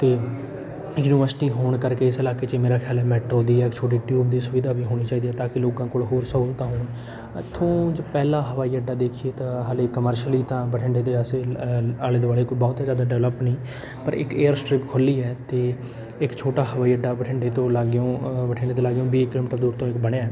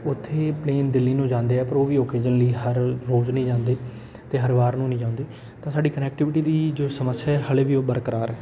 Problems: background sounds at intervals, background conversations at intervals